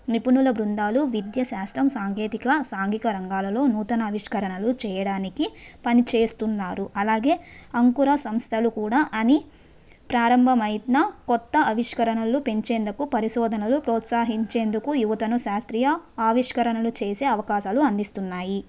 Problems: none marked